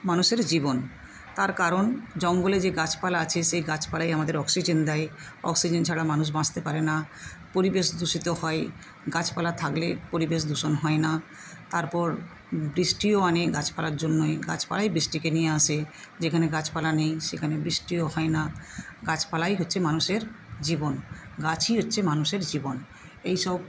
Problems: constant background noise